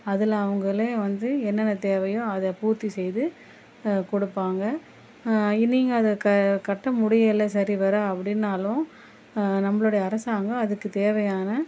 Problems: constant background noise